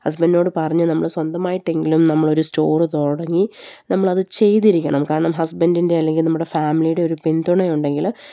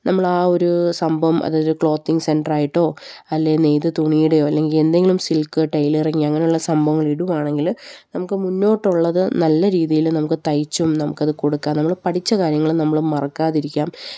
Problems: none marked